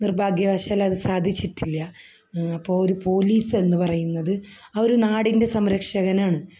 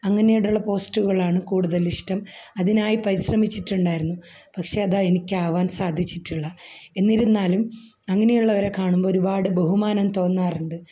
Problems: low volume